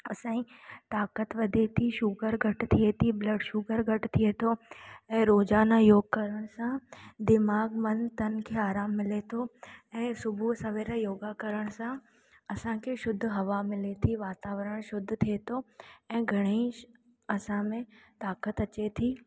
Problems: echo